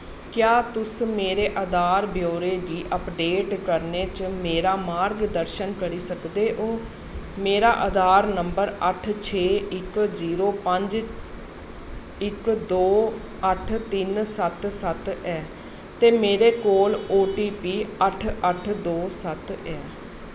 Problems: constant background noise